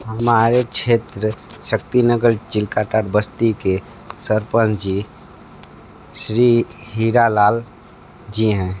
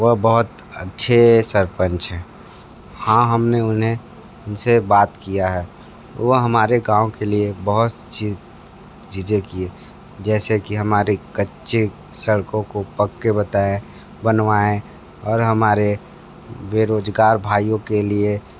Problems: constant background noise